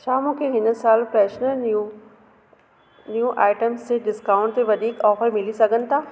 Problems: constant background noise